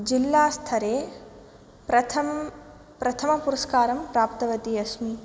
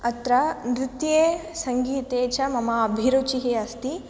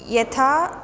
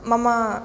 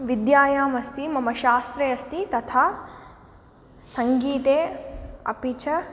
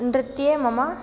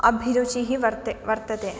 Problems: background sounds at intervals